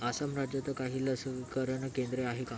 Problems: constant background noise, background conversations at intervals